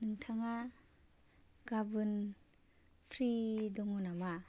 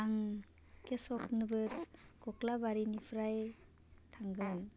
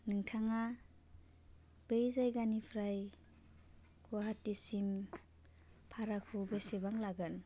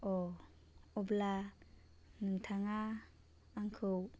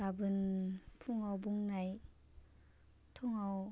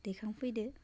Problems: constant background noise